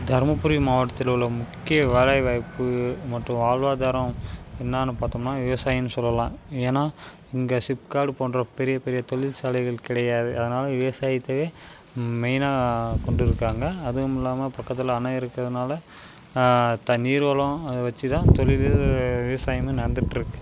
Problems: constant background noise